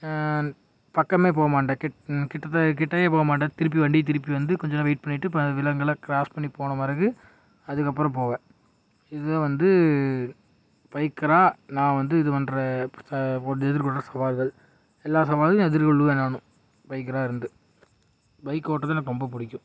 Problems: none marked